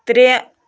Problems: none marked